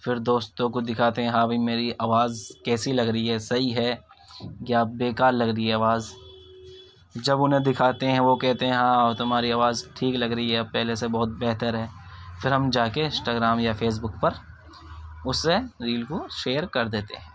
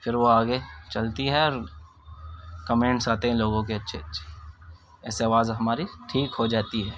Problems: background sounds at intervals, continuous background conversations